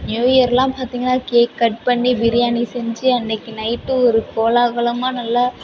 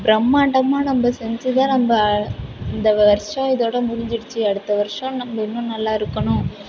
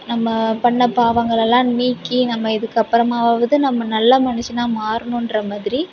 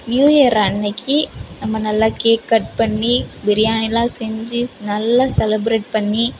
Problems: constant background noise, continuous background conversations